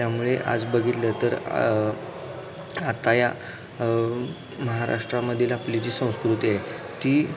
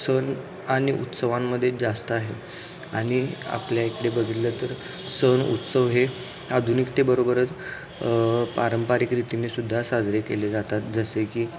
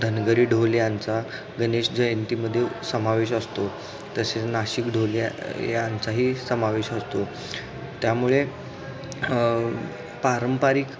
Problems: constant background noise, background conversations at intervals